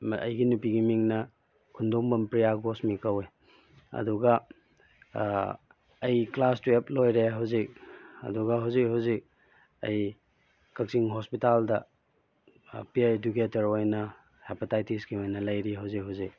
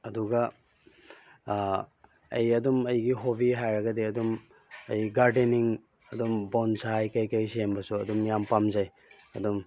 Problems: background sounds at intervals